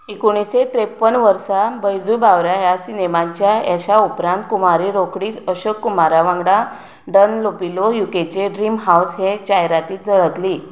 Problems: none marked